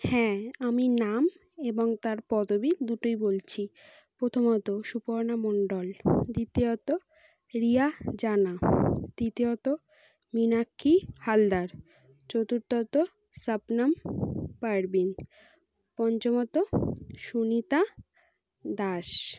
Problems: none marked